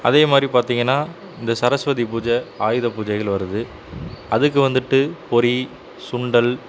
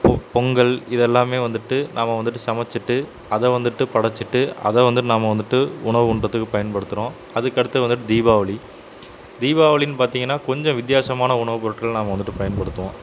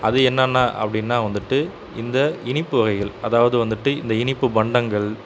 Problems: constant background noise